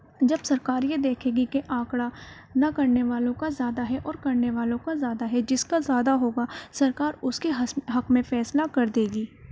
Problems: background sounds at intervals